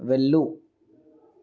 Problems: none marked